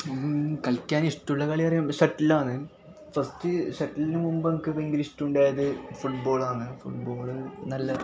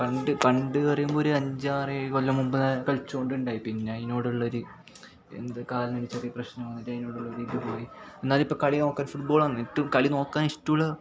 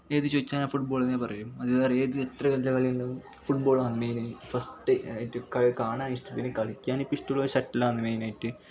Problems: background sounds at intervals, background conversations at intervals, low volume